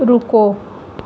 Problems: background sounds at intervals